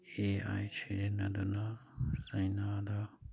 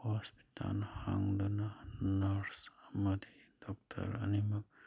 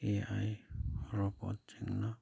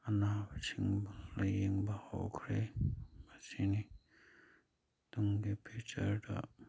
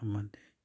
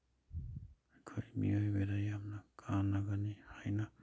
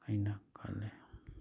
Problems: none marked